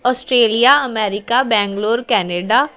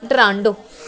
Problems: continuous background conversations